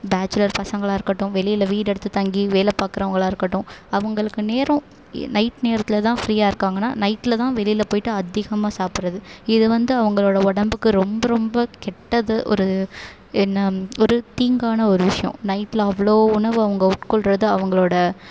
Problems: none marked